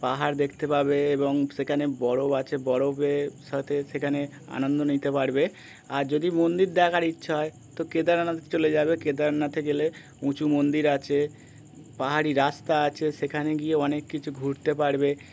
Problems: constant background noise